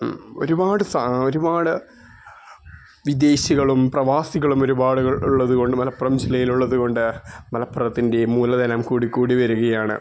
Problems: background sounds at intervals